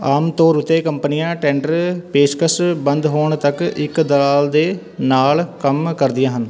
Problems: continuous background conversations